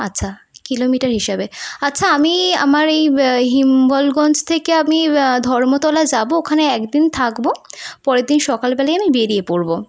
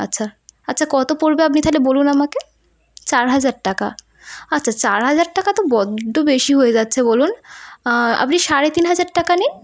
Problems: none marked